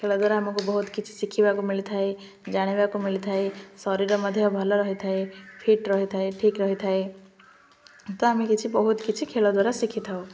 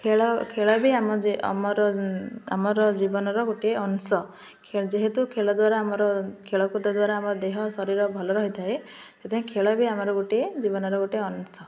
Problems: constant background noise, continuous background conversations